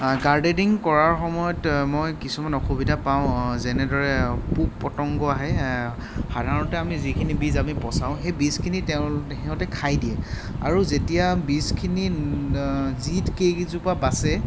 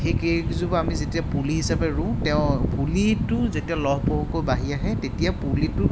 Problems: constant background noise